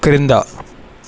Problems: constant background noise